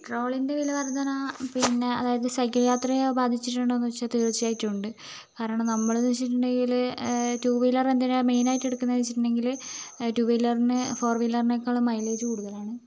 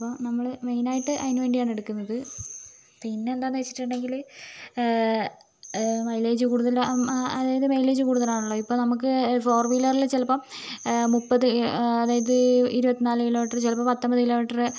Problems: constant background noise